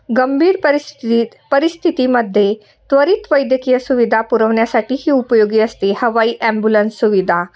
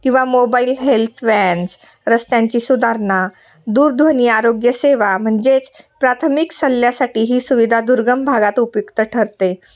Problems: constant background noise, continuous background conversations